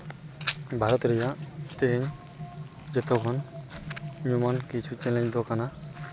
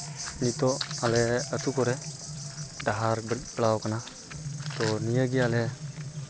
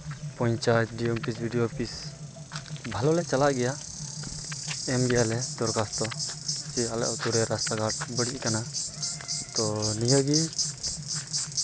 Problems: constant background noise